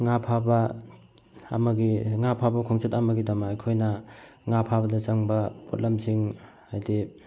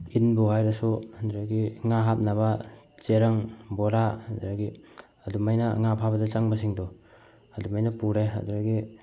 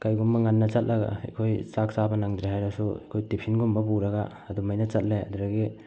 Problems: background sounds at intervals